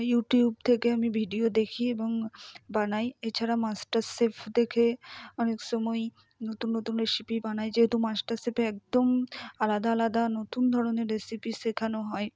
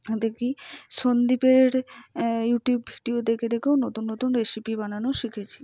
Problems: none marked